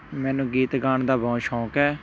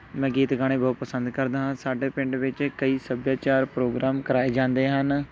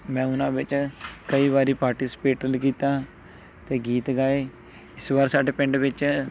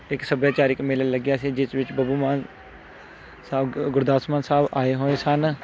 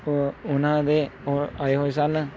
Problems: continuous background conversations